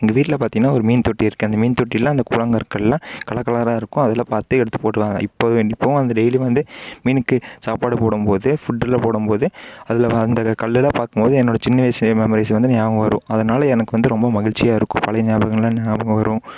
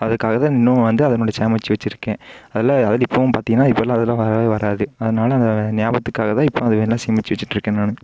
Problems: none marked